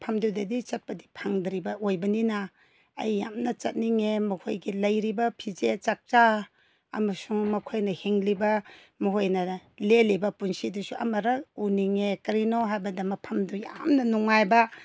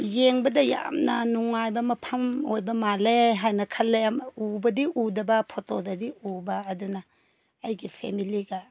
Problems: none marked